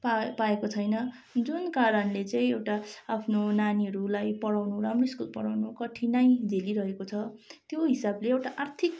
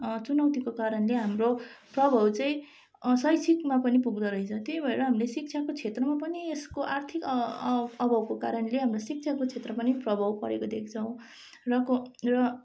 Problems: background sounds at intervals